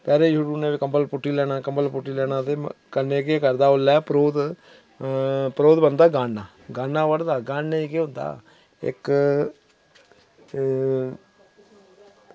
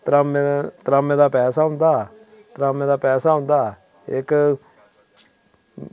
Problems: none marked